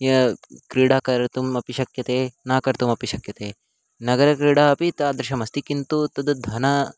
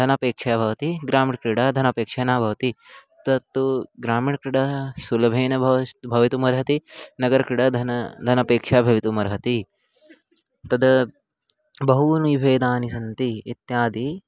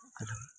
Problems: constant background noise